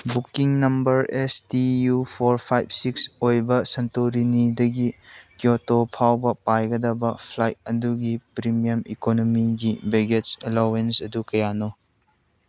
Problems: none marked